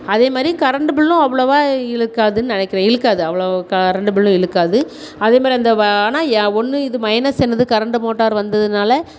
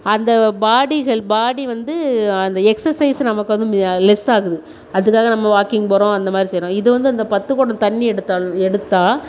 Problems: none marked